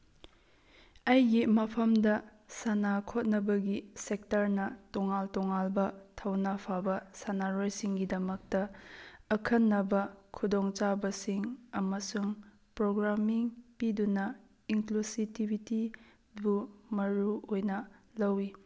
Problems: none marked